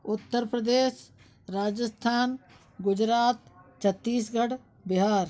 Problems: none marked